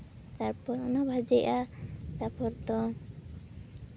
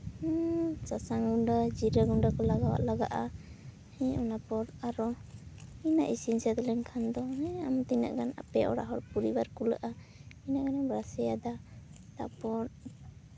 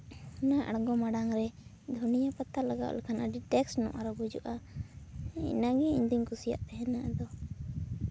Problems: constant background noise, background conversations at intervals